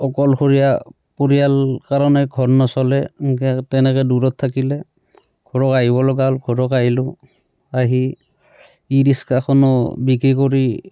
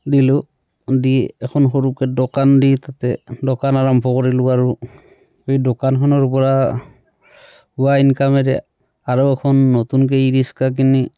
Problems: none marked